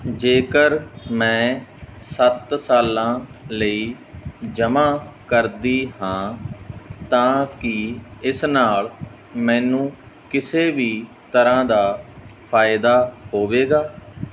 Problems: background sounds at intervals